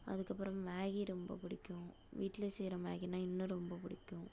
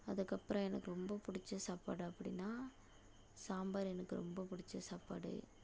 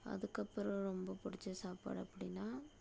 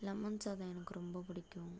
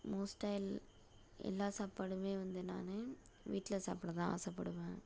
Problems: low volume